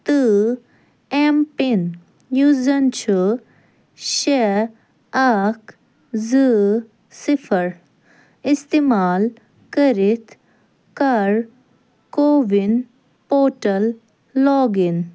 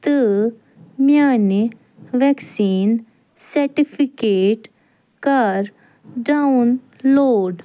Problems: none marked